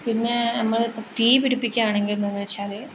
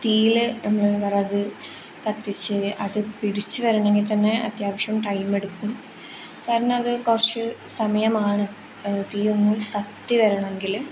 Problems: none marked